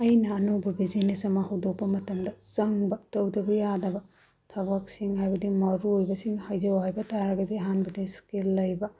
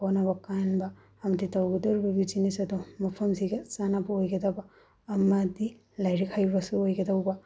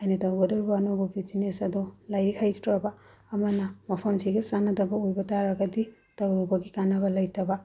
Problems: low volume